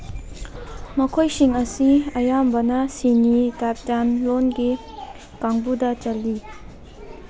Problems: background conversations at intervals